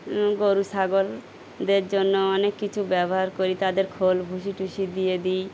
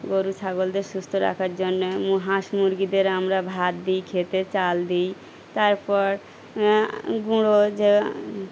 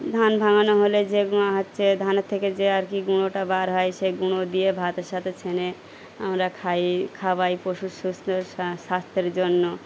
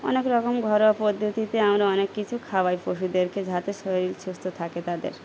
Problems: background sounds at intervals